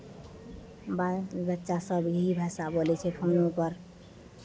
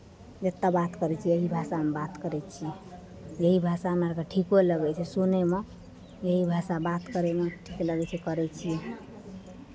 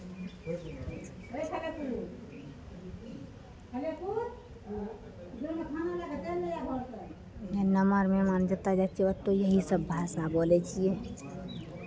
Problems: background conversations at intervals